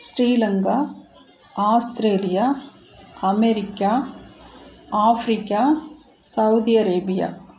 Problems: none marked